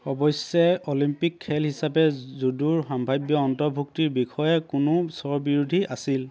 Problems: constant background noise, background conversations at intervals